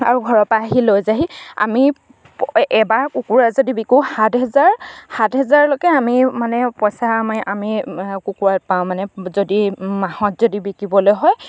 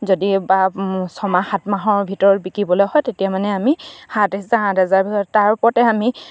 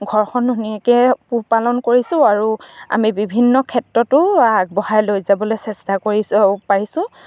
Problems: none marked